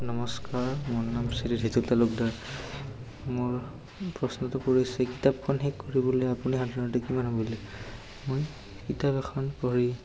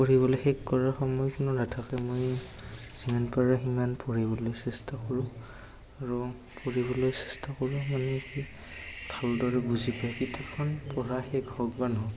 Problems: background sounds at intervals, background conversations at intervals, echo